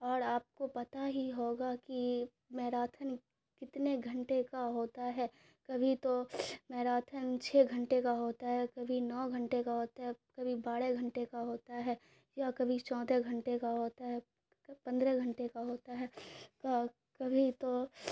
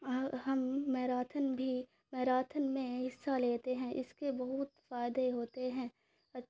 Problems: none marked